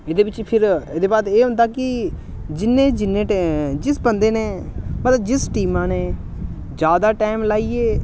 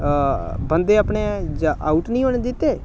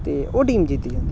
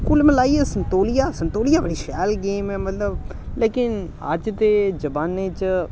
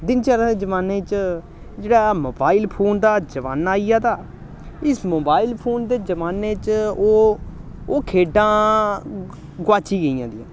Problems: constant background noise